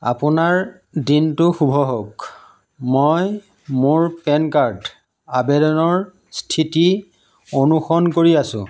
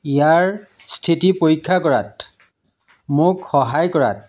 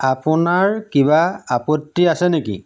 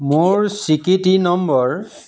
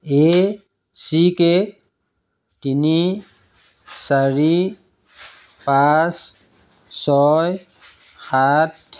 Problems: low volume